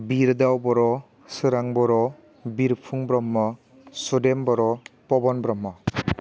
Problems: constant background noise